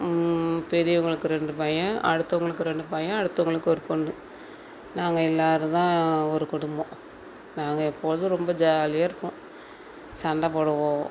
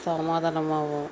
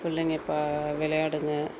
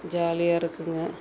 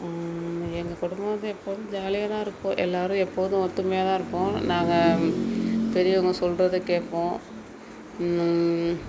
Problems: none marked